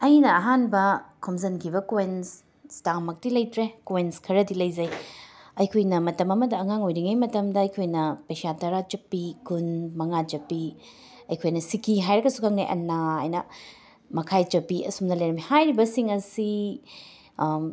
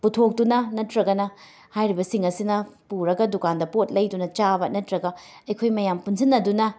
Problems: background sounds at intervals, background conversations at intervals